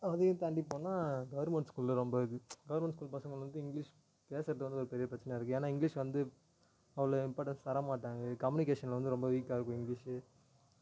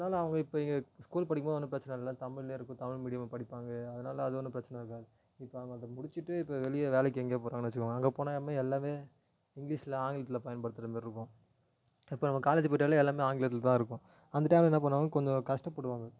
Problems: low volume